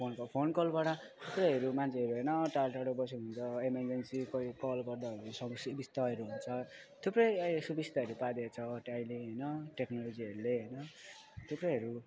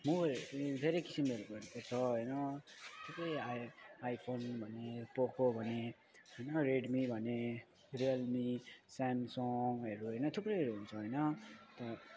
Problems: none marked